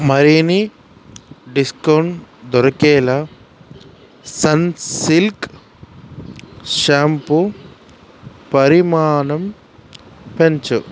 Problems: constant background noise